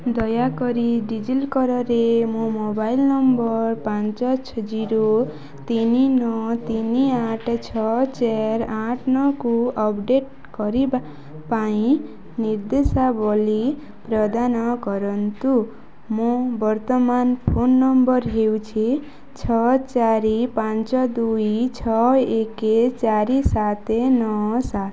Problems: none marked